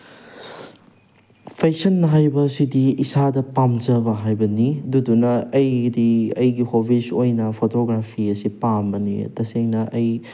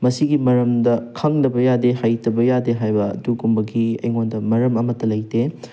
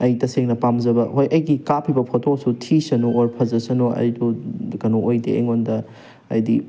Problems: background sounds at intervals